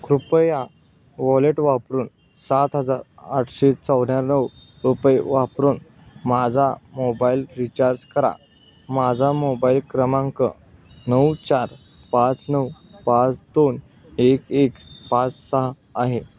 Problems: none marked